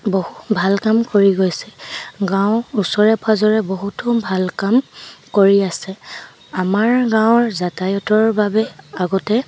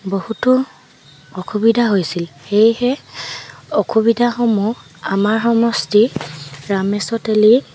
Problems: none marked